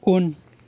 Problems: none marked